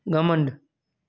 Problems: none marked